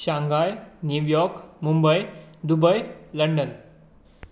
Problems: none marked